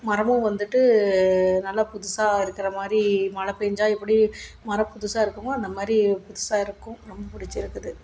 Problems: none marked